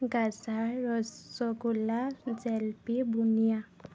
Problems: constant background noise, background conversations at intervals